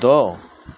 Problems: none marked